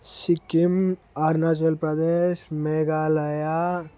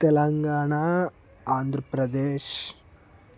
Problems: constant background noise